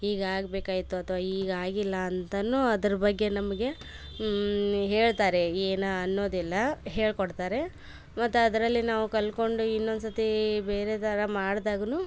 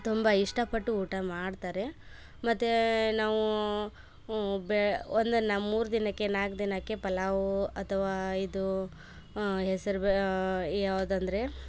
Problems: background sounds at intervals